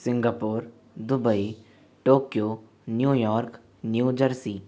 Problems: constant background noise